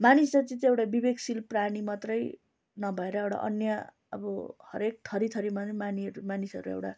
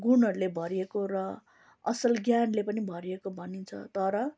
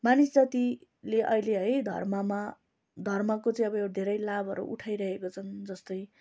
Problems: constant background noise